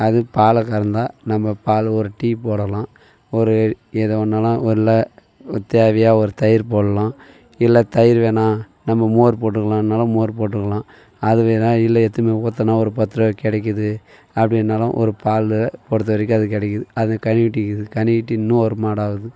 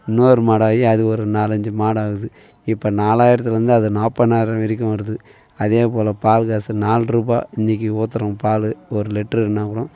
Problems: none marked